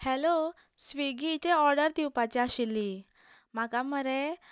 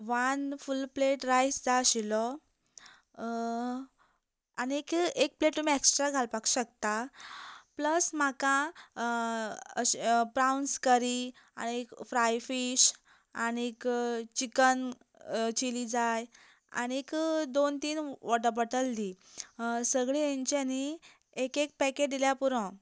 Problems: constant background noise